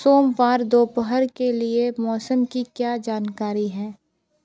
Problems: constant background noise, continuous background conversations